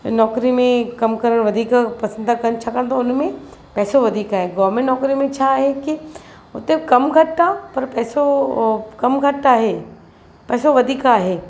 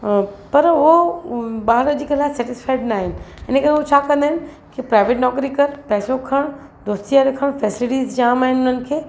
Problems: constant background noise